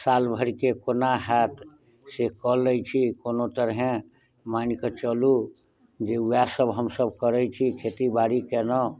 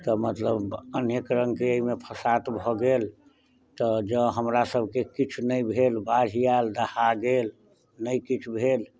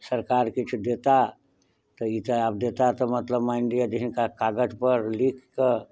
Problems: none marked